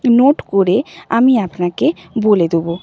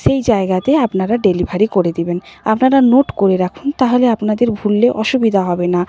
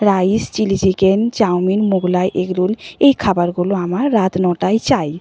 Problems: background sounds at intervals